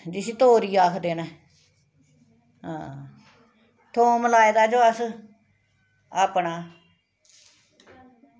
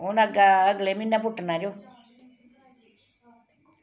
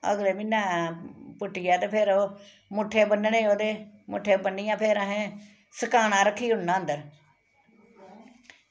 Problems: constant background noise, background conversations at intervals